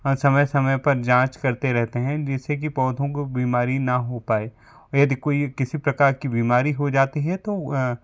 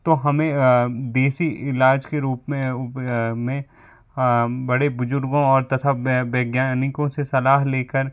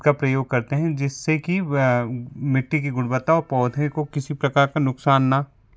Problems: background sounds at intervals